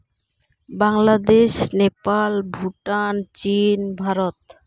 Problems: background sounds at intervals